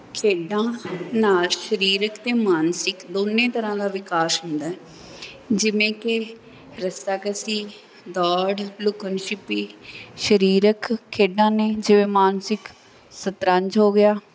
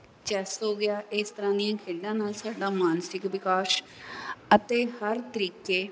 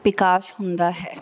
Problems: background sounds at intervals